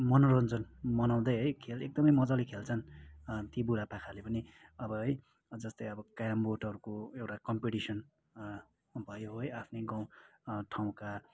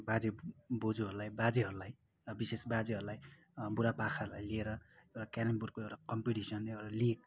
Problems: background sounds at intervals